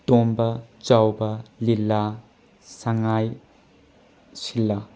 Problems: background sounds at intervals